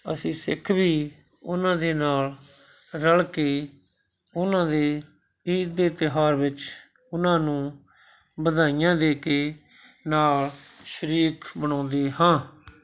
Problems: none marked